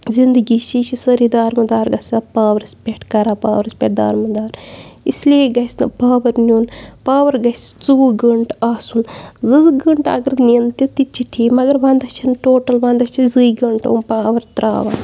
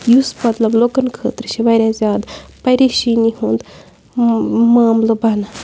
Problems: none marked